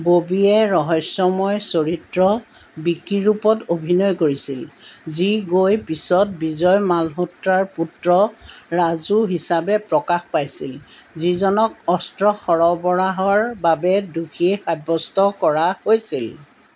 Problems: background sounds at intervals